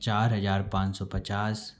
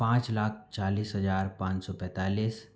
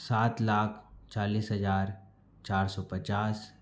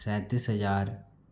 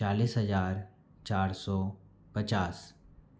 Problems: none marked